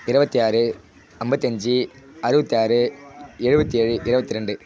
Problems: constant background noise